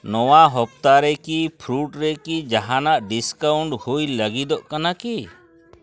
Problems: background conversations at intervals